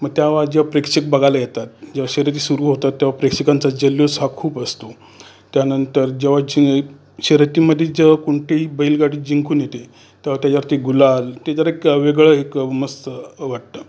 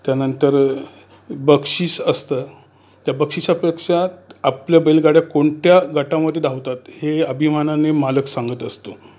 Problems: constant background noise, background conversations at intervals